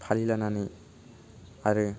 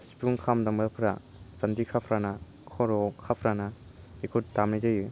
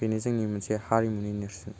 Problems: low volume